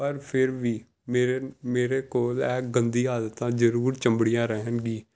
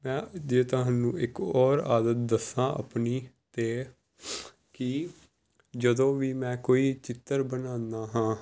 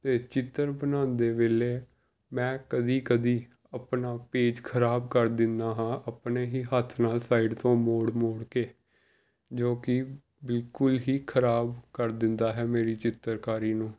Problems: background sounds at intervals